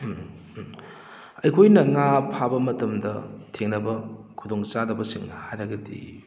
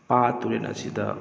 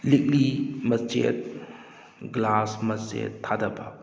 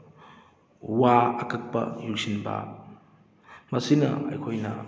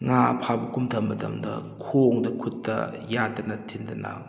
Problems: background sounds at intervals